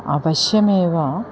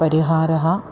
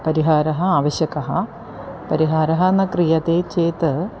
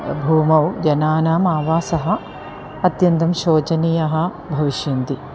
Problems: constant background noise